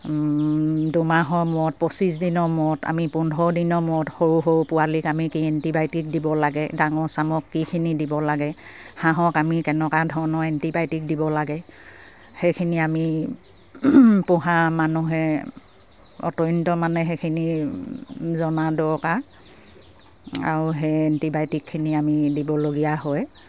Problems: none marked